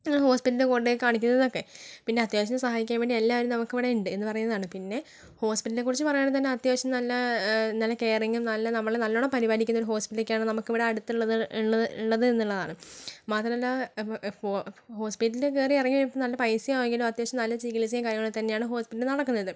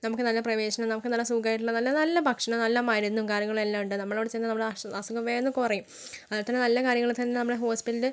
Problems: low volume